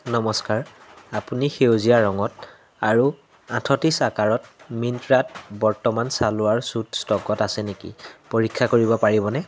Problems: none marked